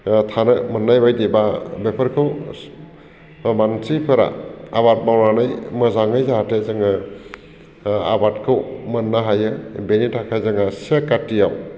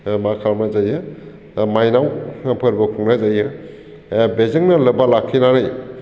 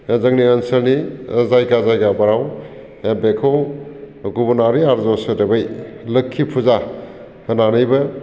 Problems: constant background noise